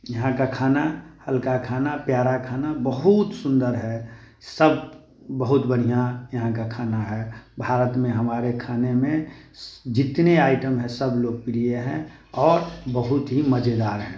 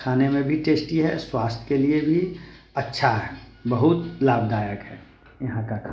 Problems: constant background noise